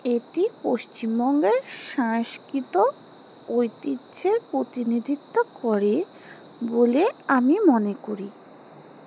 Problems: background sounds at intervals